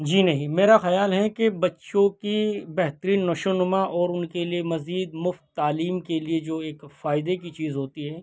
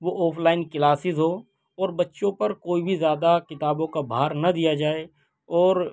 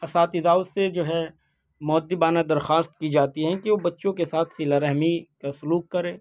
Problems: none marked